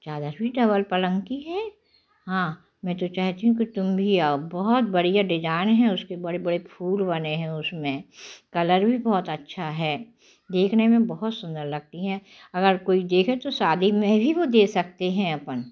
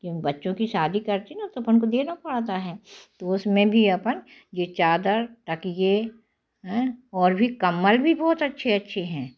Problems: none marked